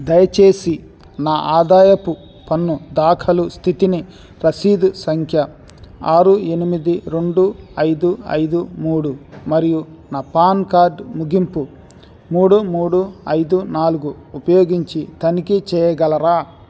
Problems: constant background noise